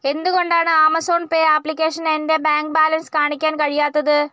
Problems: none marked